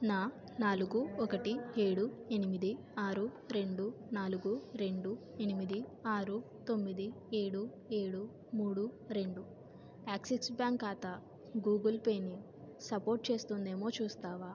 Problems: none marked